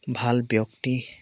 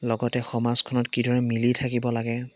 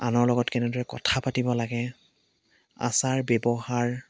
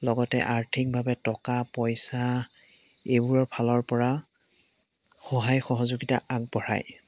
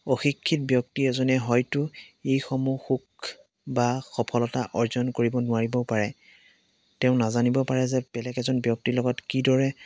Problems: background sounds at intervals